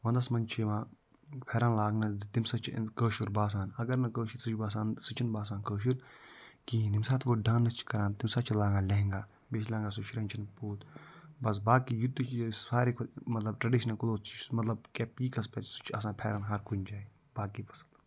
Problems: none marked